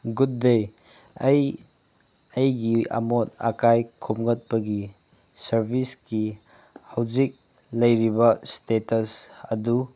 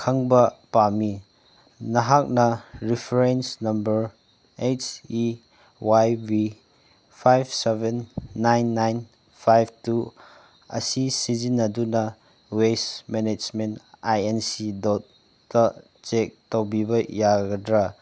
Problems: background sounds at intervals